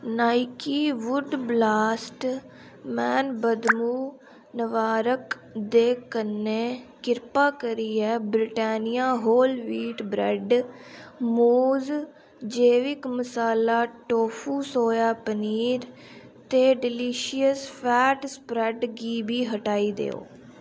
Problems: none marked